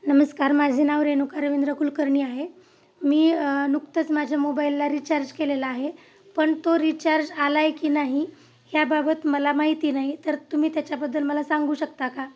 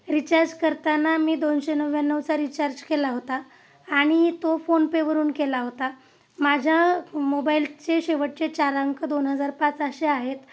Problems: none marked